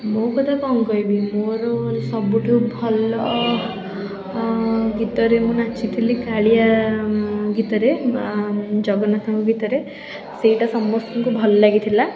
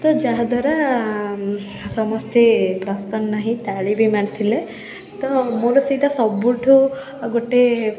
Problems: background sounds at intervals, continuous background conversations